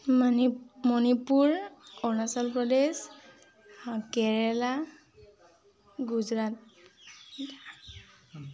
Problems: constant background noise